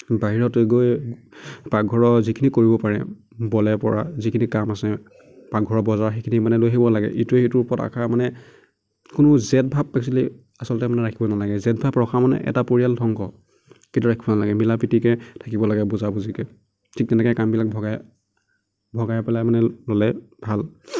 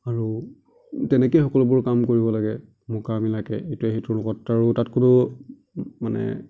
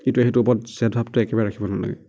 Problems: none marked